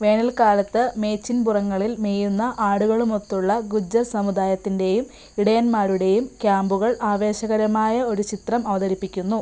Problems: background sounds at intervals